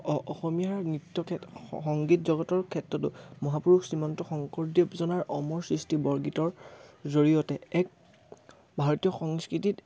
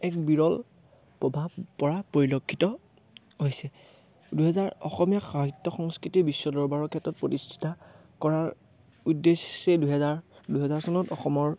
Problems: background sounds at intervals